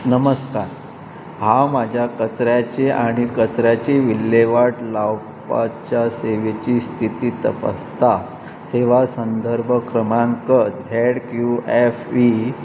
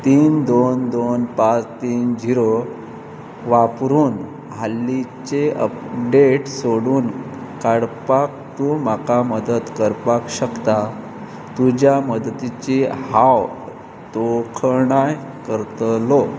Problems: none marked